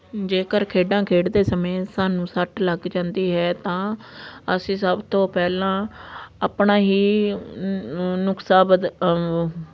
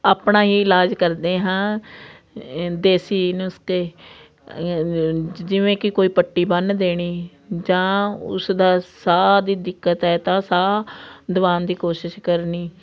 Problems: constant background noise